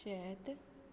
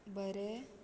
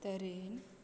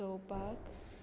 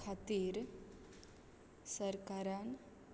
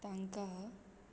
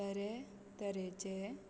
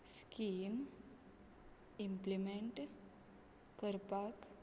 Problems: constant background noise